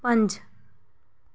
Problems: none marked